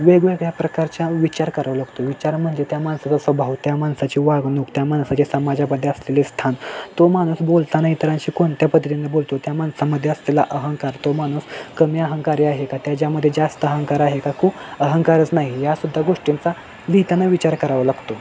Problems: constant background noise, background conversations at intervals